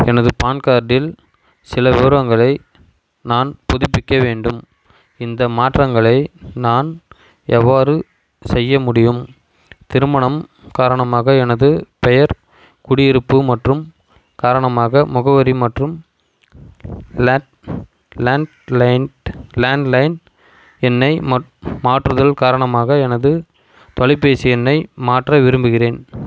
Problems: constant background noise